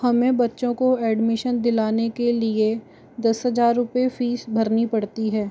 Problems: constant background noise